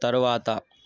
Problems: none marked